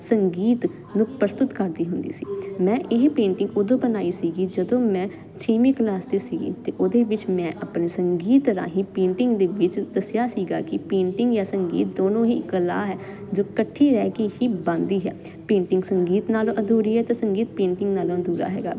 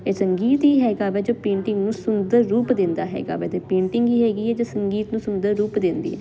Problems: constant background noise